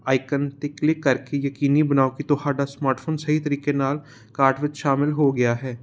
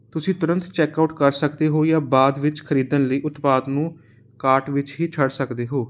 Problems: constant background noise